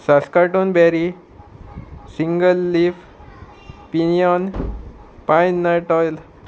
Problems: constant background noise